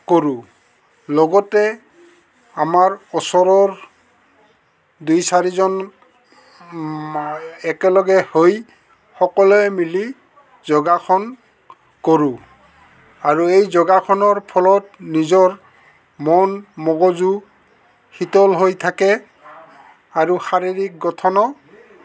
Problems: constant background noise, background conversations at intervals